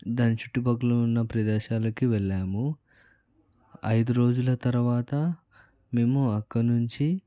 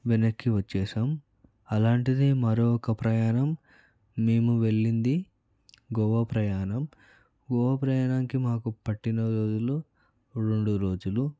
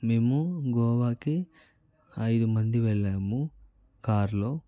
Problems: background conversations at intervals, low volume